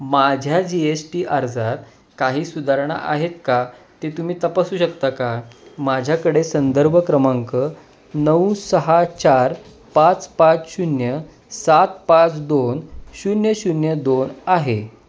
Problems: none marked